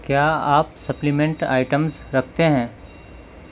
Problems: constant background noise